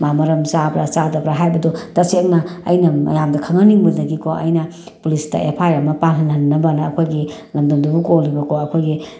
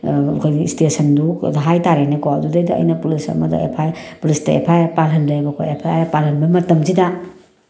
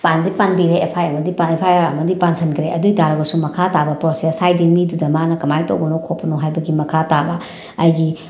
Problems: background sounds at intervals